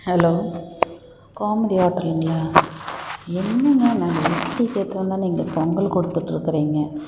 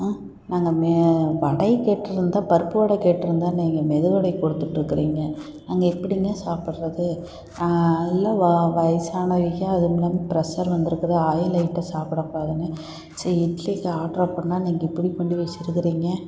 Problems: background sounds at intervals